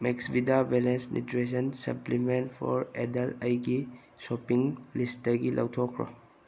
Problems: background sounds at intervals